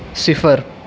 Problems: constant background noise